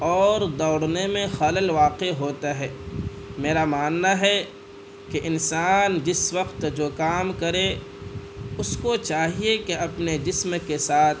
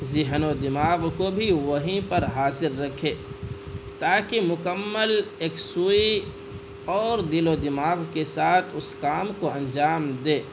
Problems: constant background noise